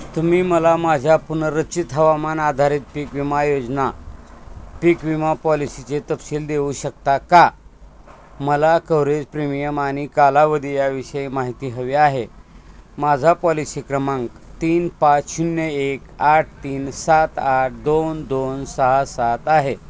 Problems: constant background noise, background conversations at intervals